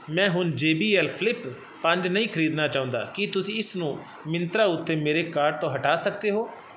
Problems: constant background noise